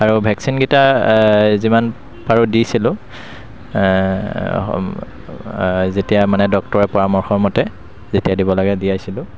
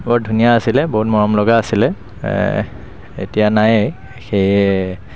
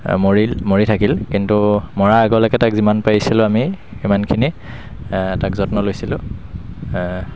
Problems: constant background noise